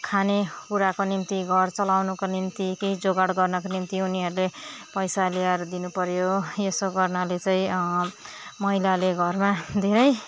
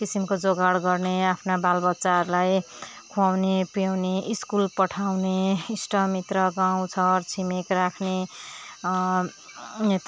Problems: none marked